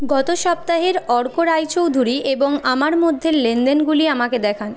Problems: none marked